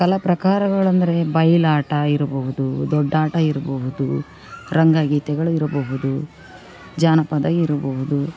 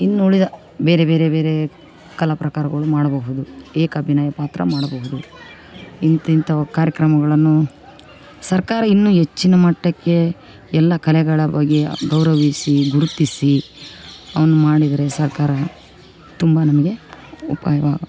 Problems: background conversations at intervals